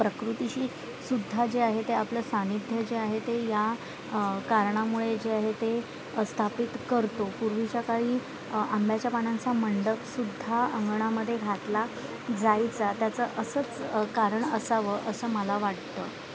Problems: constant background noise, background conversations at intervals